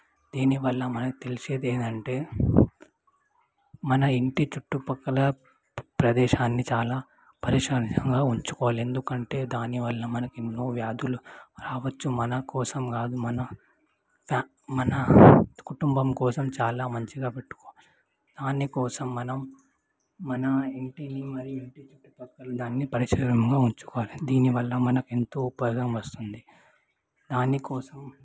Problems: background sounds at intervals, low volume